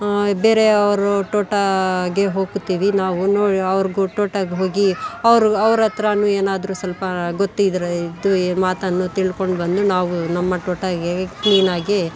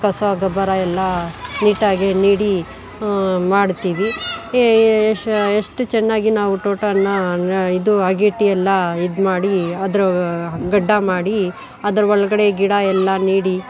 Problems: background sounds at intervals, background conversations at intervals